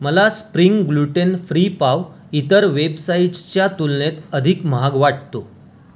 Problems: none marked